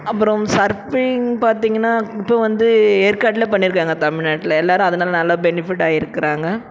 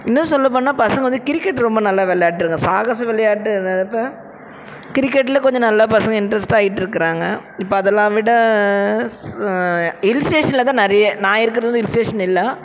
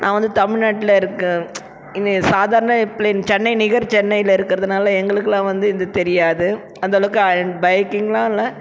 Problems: background sounds at intervals